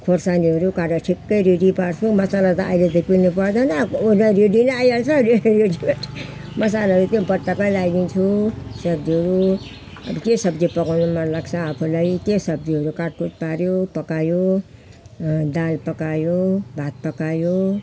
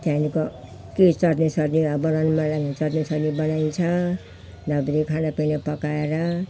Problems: none marked